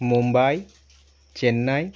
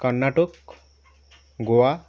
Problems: constant background noise